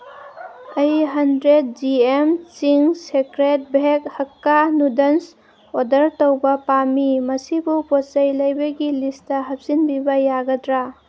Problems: background sounds at intervals